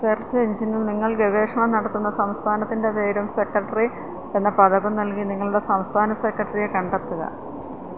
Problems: constant background noise